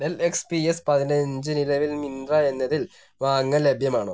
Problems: none marked